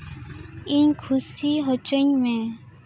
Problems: background sounds at intervals, background conversations at intervals